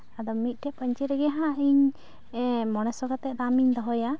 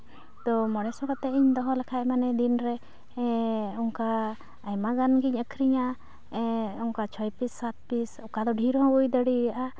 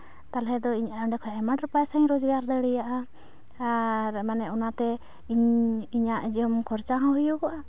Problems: constant background noise